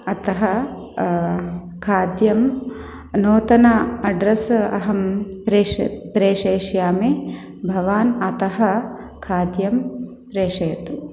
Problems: background sounds at intervals